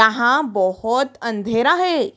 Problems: background sounds at intervals